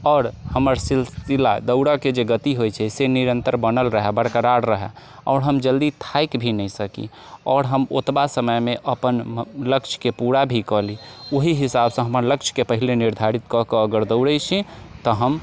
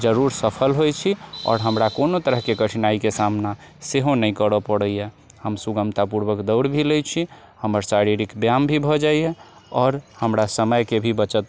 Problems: background sounds at intervals